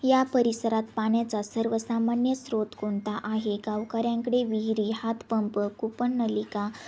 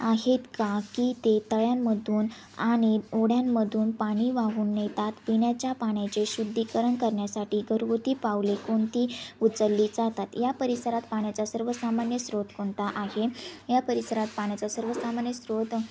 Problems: constant background noise, background conversations at intervals